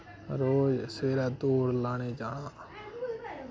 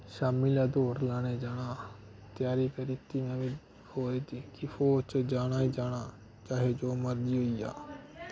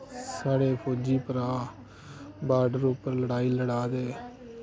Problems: constant background noise